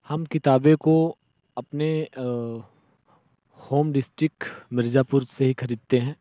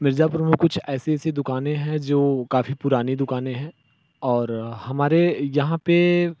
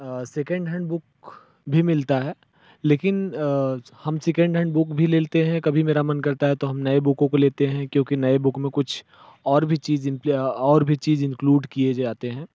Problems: background sounds at intervals